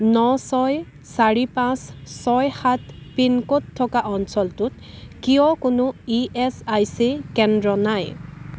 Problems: constant background noise